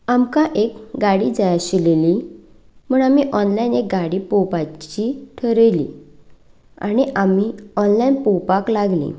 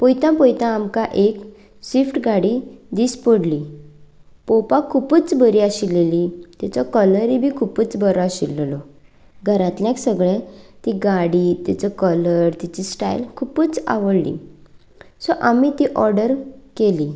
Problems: none marked